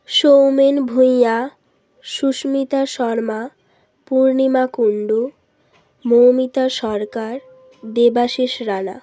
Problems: constant background noise